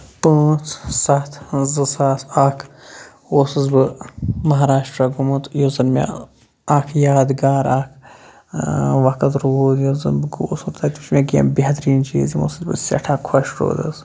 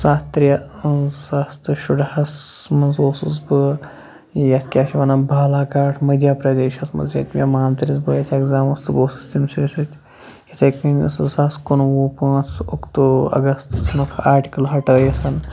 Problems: background sounds at intervals